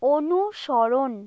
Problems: none marked